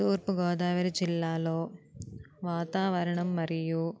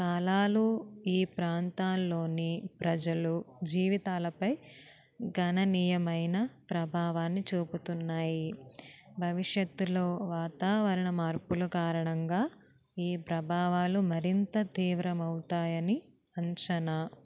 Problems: none marked